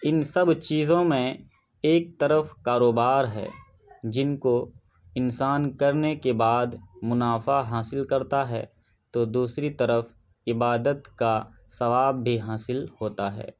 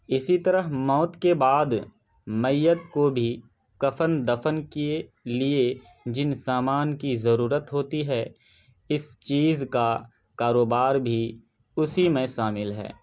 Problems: background sounds at intervals